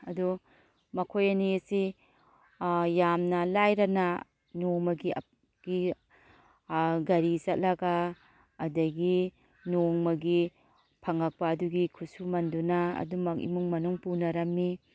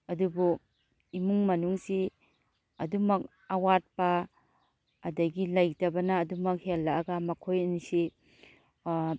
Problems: none marked